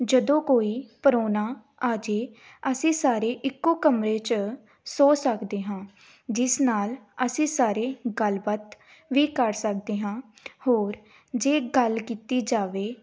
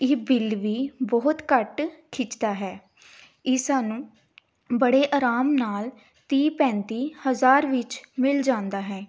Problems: background sounds at intervals